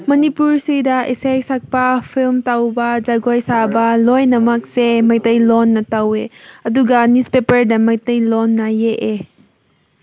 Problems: none marked